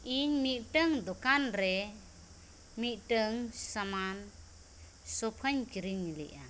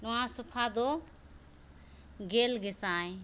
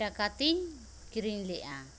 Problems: none marked